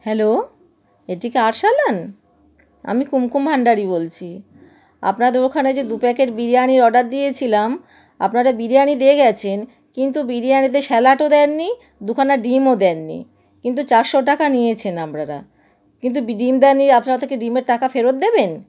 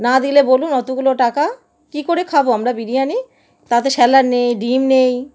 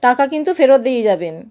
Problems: none marked